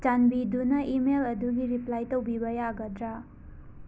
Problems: low volume